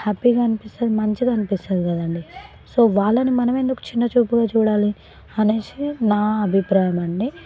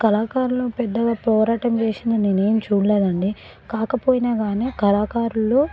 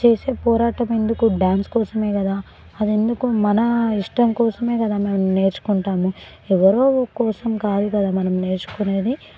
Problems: background conversations at intervals